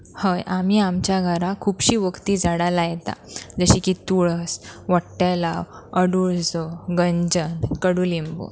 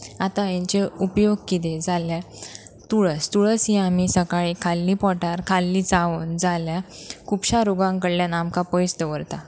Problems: background sounds at intervals